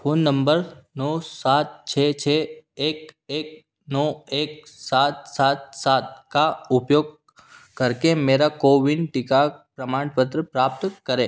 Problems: background sounds at intervals